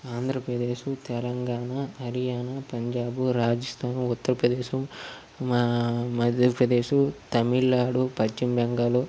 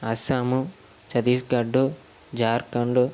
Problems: constant background noise